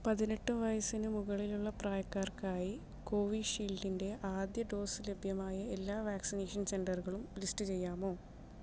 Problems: low volume